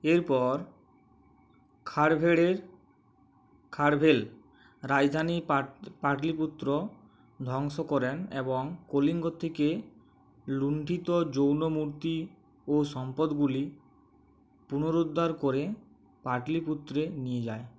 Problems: constant background noise